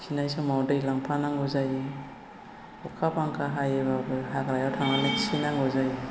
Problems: constant background noise